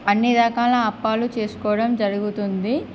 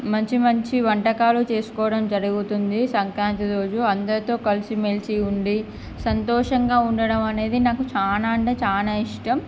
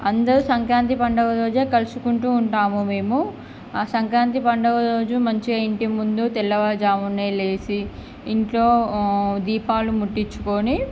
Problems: none marked